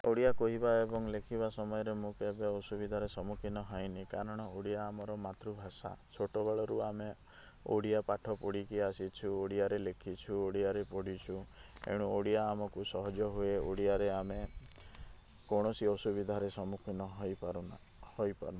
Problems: low volume